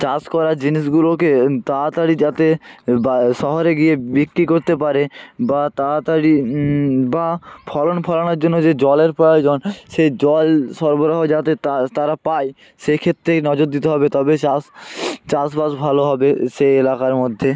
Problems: constant background noise, continuous background conversations